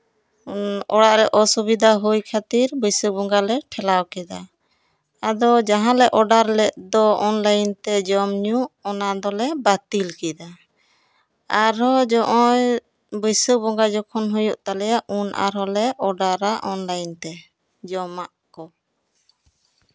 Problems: background sounds at intervals